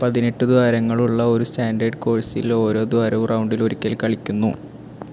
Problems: constant background noise